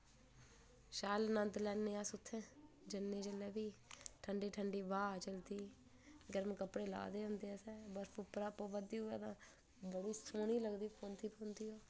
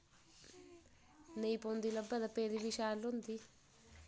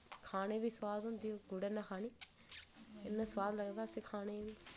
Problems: low volume